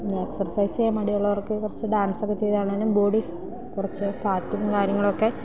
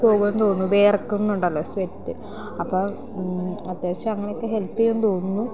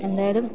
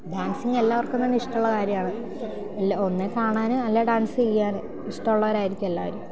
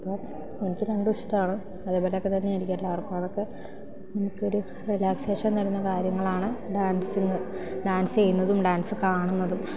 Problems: constant background noise